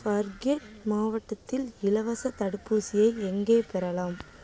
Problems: constant background noise